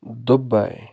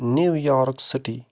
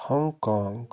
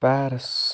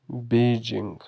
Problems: none marked